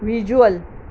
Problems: constant background noise